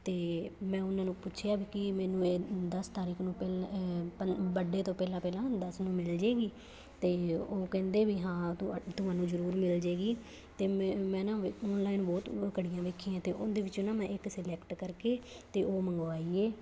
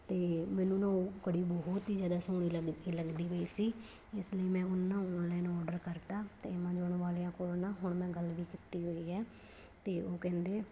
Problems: none marked